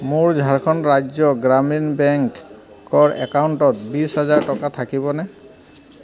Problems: constant background noise